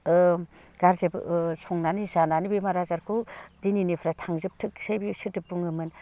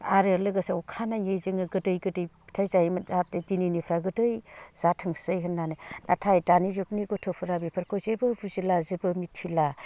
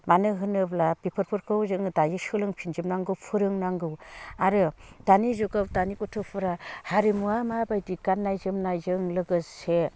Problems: low volume